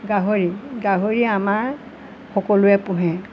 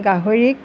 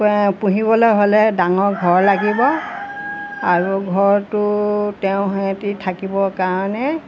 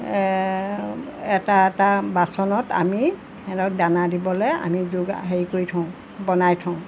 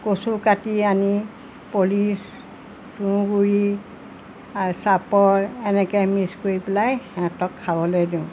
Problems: constant background noise